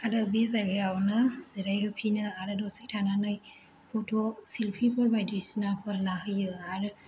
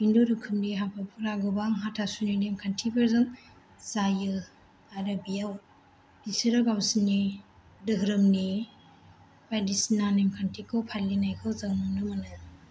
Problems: echo